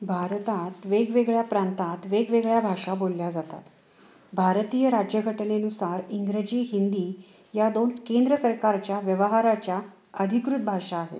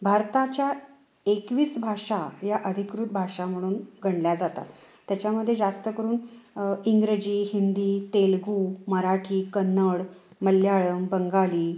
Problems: constant background noise